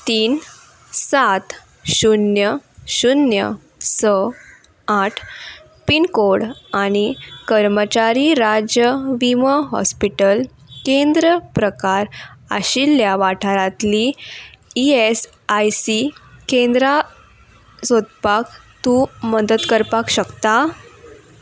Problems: background sounds at intervals